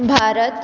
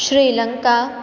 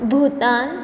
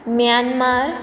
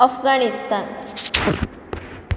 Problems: background sounds at intervals